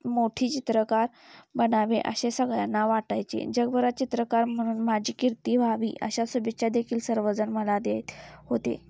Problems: none marked